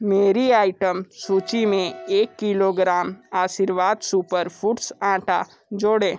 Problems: background sounds at intervals